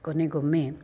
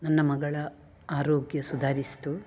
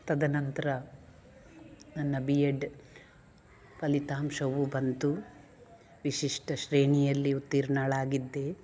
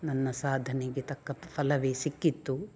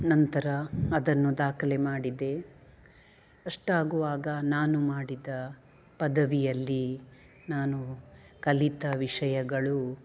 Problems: none marked